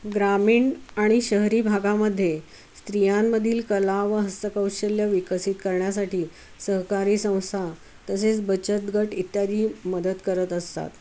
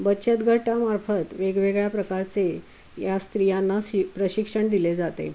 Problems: none marked